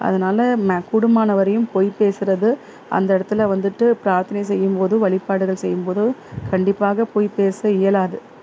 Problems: constant background noise